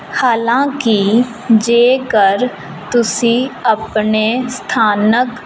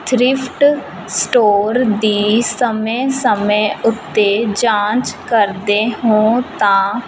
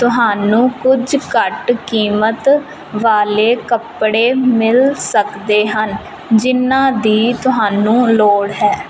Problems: constant background noise, background conversations at intervals